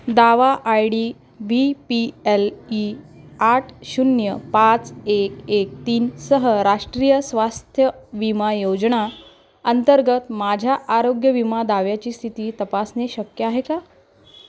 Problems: constant background noise